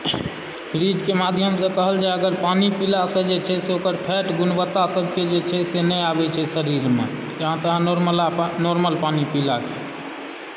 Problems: background sounds at intervals, low volume